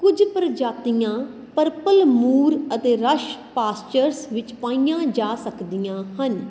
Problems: constant background noise